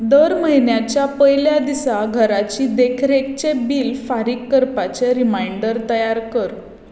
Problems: echo